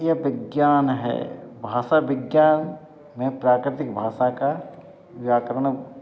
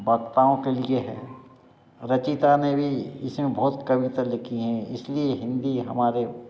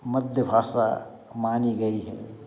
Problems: background sounds at intervals, background conversations at intervals